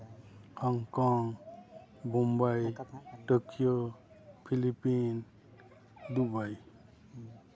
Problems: constant background noise, background conversations at intervals